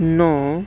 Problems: none marked